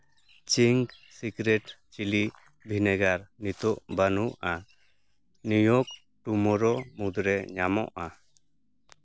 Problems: background sounds at intervals